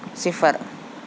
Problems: constant background noise